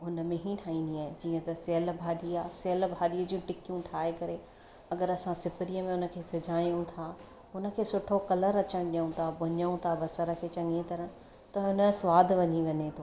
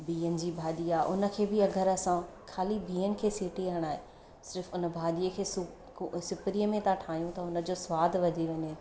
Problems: constant background noise